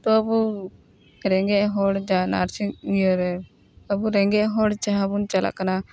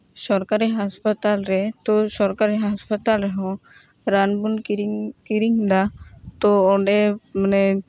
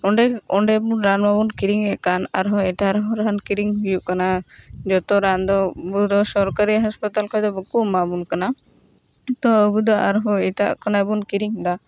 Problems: background sounds at intervals